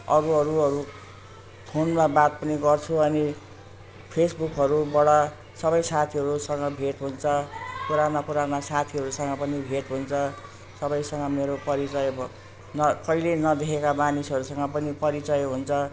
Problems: constant background noise